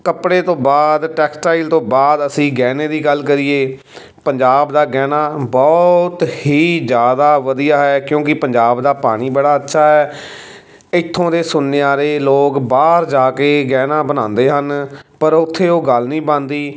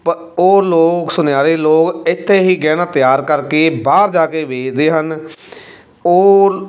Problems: constant background noise